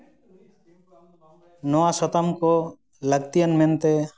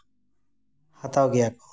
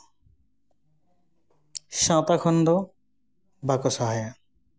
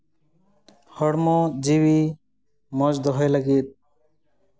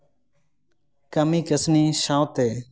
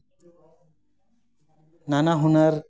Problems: background sounds at intervals, continuous background conversations